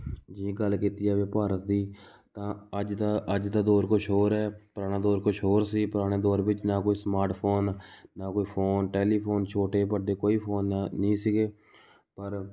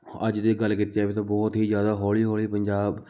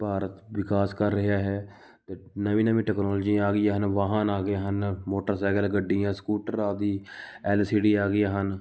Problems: background sounds at intervals